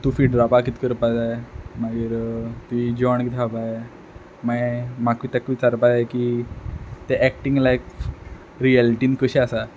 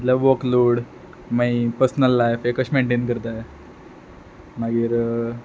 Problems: background sounds at intervals